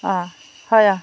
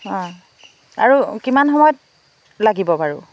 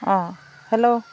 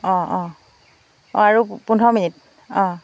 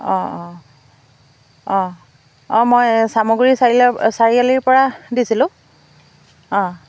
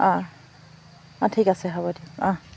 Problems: background sounds at intervals